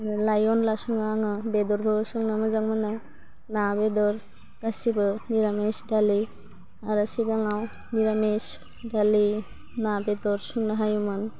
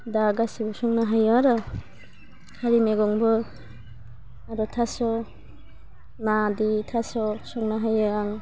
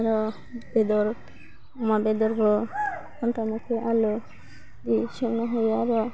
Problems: constant background noise